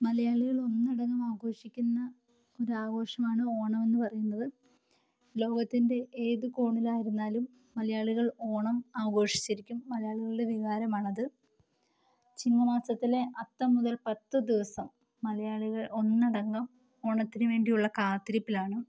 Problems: low volume